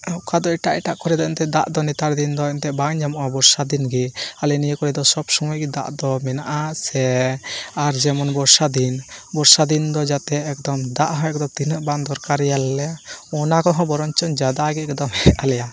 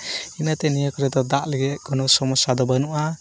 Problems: constant background noise